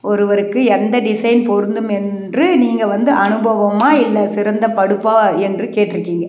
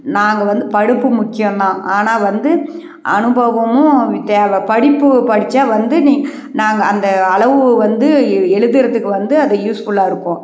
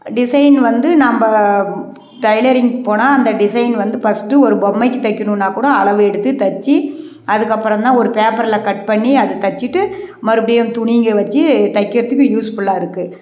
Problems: none marked